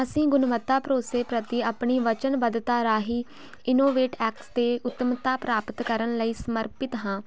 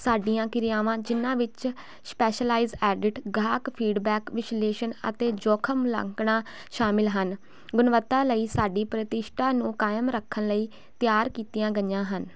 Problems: constant background noise